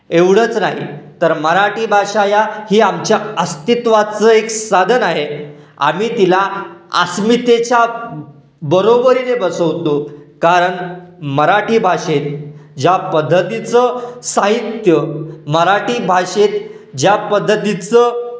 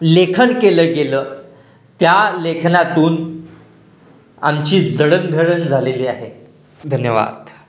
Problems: background sounds at intervals, echo